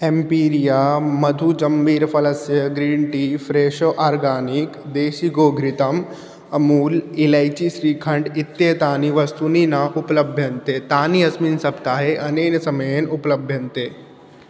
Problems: none marked